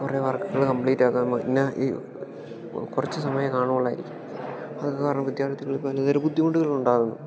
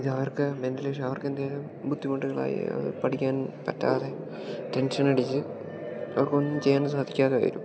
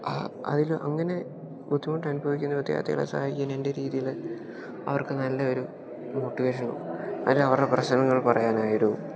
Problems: background sounds at intervals